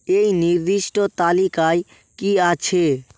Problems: constant background noise